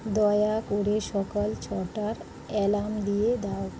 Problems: none marked